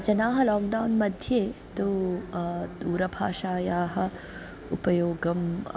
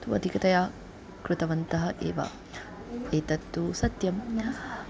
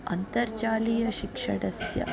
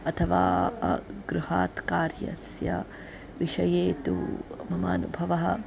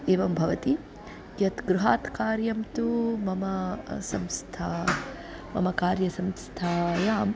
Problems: continuous background conversations